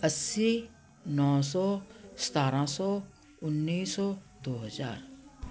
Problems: none marked